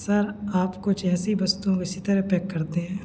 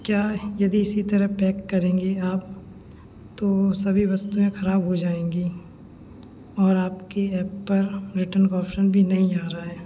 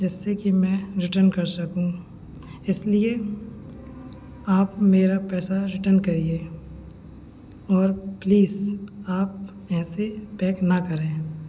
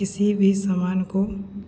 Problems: background conversations at intervals